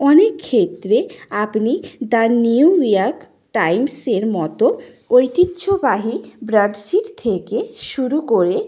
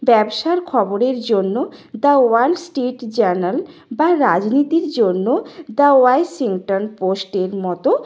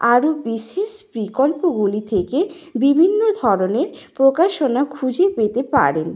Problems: background conversations at intervals